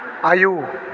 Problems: constant background noise